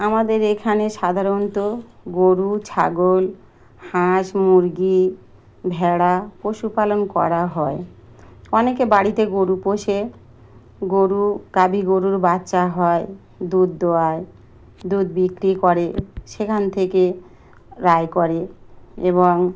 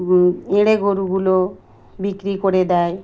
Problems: constant background noise